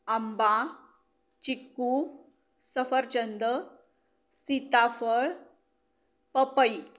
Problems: none marked